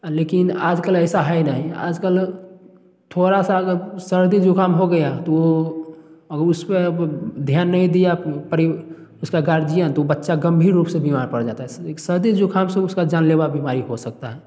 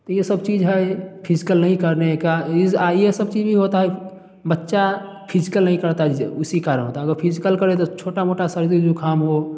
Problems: none marked